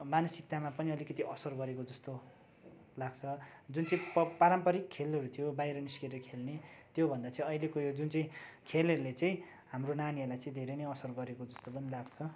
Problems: none marked